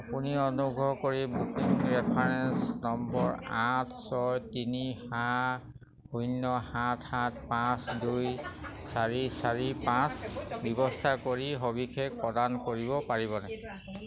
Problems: none marked